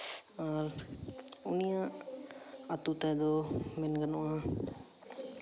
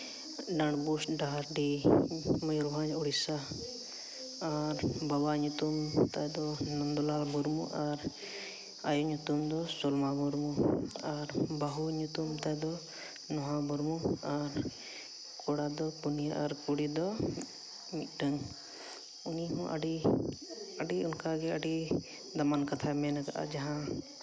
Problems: background sounds at intervals, background conversations at intervals